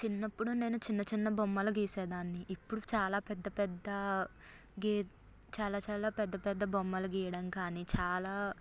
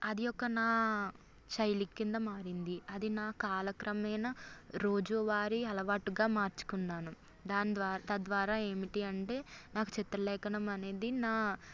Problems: none marked